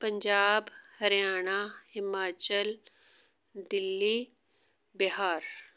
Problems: none marked